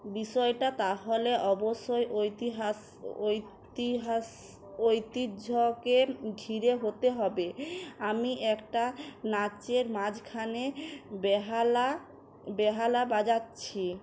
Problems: none marked